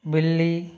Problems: none marked